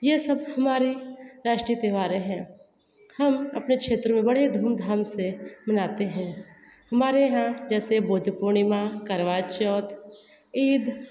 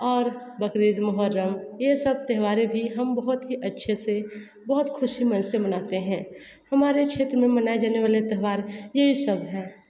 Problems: none marked